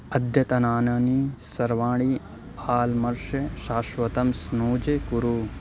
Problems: constant background noise